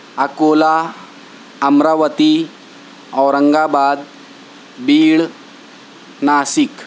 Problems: constant background noise